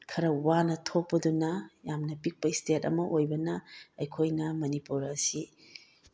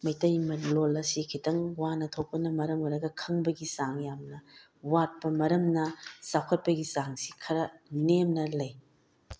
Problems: none marked